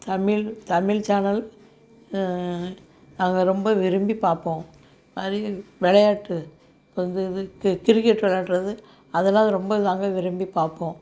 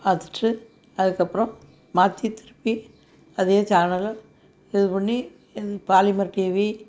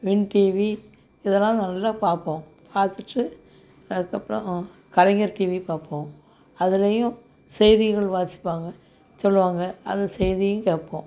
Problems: none marked